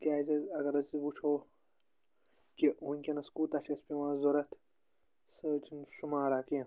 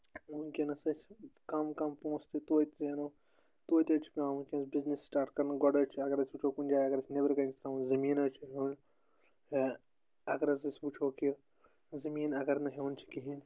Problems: constant background noise